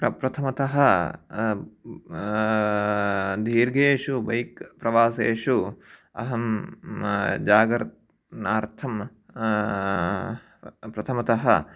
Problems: none marked